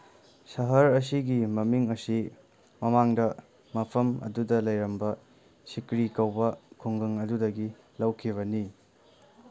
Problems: background sounds at intervals